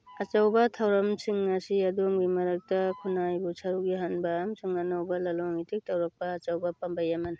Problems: background sounds at intervals